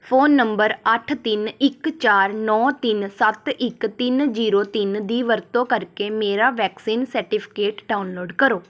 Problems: none marked